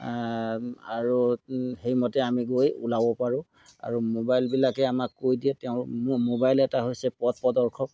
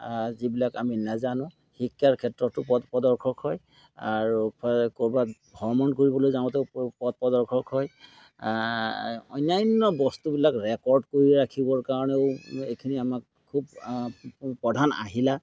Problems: background sounds at intervals